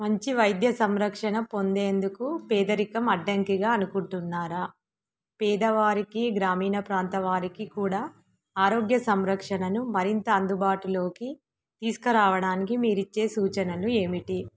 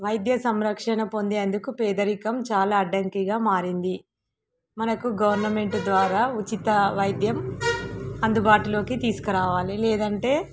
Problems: background sounds at intervals